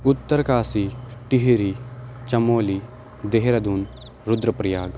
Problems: constant background noise